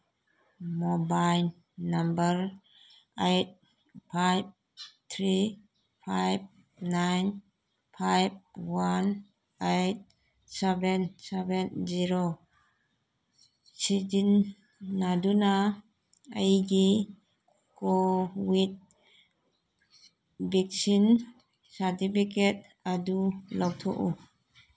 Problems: background conversations at intervals